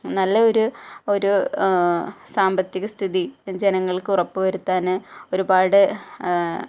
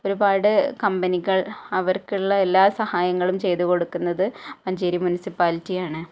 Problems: low volume